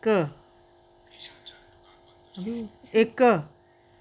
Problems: none marked